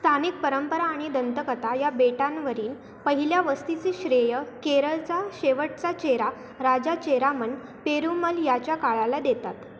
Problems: constant background noise